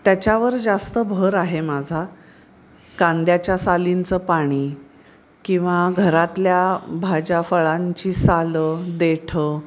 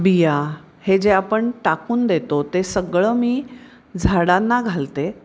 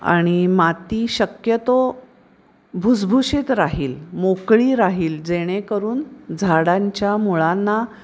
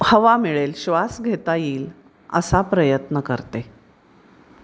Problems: constant background noise